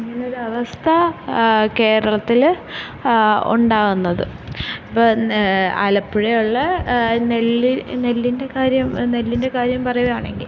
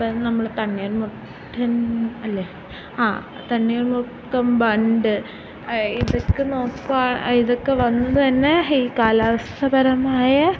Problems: constant background noise